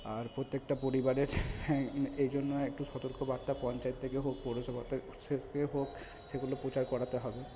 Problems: constant background noise